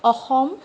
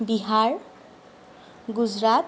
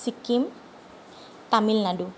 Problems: none marked